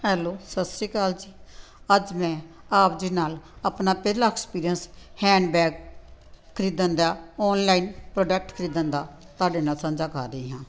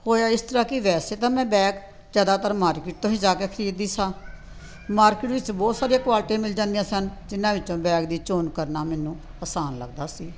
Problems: none marked